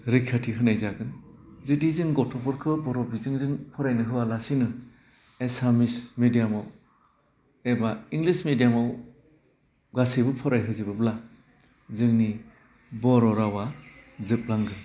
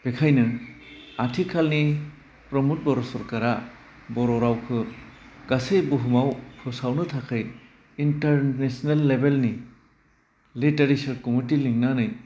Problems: constant background noise